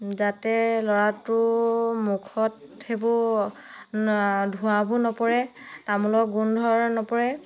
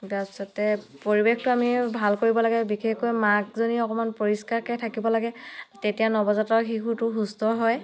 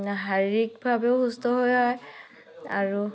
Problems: background conversations at intervals